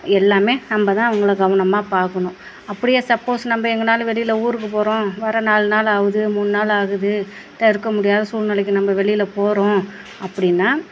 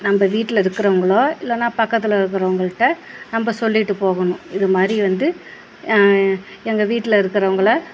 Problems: none marked